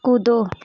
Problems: none marked